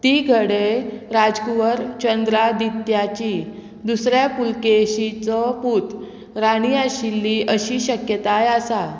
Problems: constant background noise